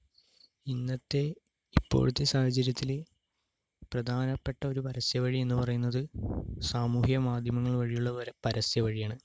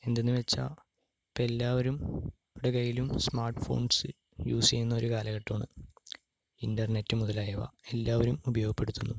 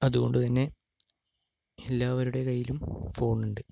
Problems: low volume